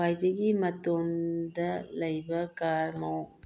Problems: low volume